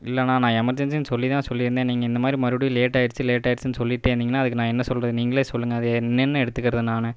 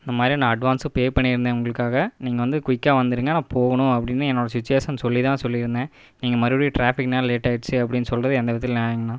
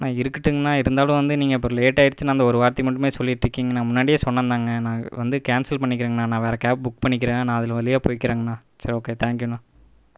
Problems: none marked